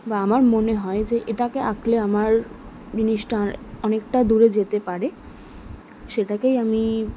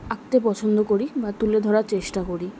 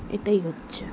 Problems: background conversations at intervals